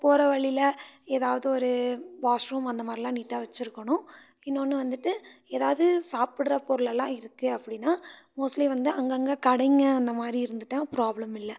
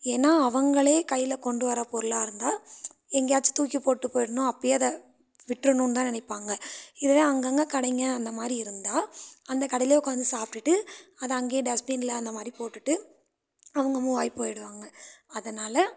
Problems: none marked